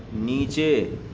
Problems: none marked